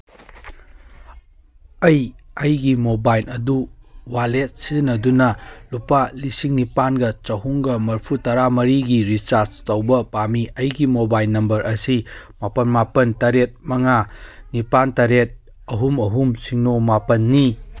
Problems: none marked